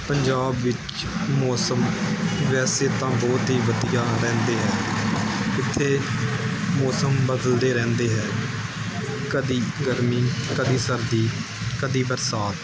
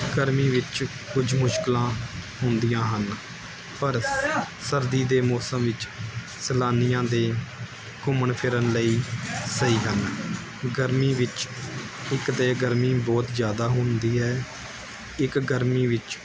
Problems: background sounds at intervals